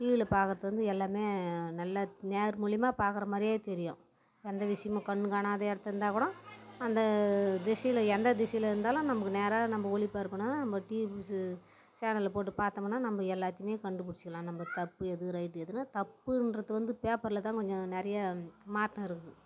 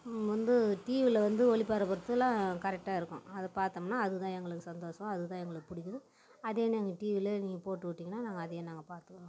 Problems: background sounds at intervals